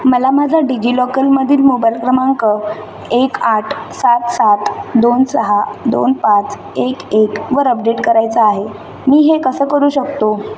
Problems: background sounds at intervals